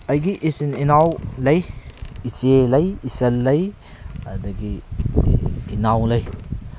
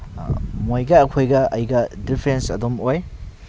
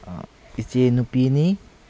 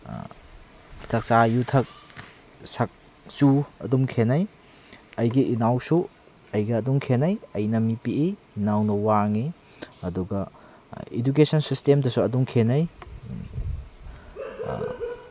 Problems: constant background noise